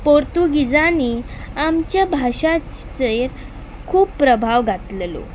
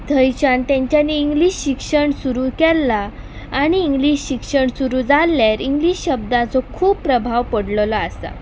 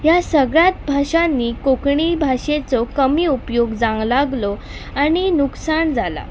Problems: background sounds at intervals